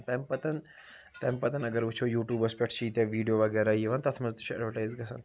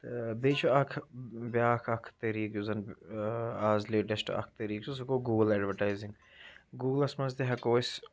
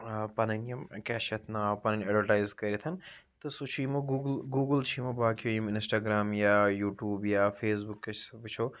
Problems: background sounds at intervals